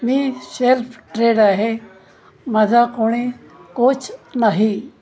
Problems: constant background noise, background conversations at intervals